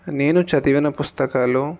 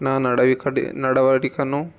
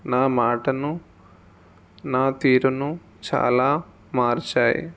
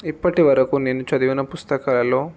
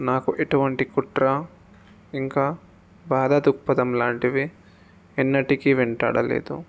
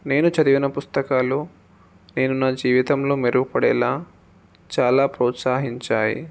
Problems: none marked